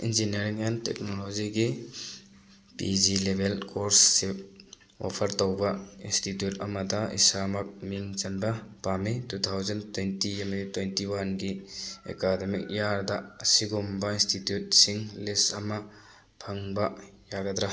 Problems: background sounds at intervals